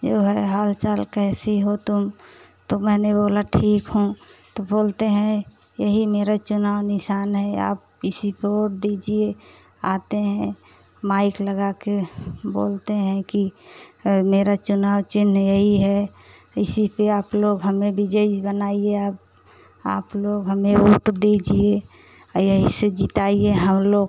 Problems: none marked